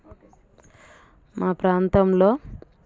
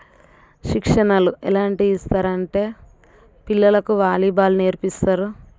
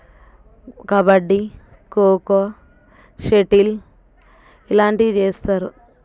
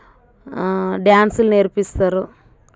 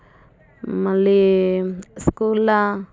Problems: none marked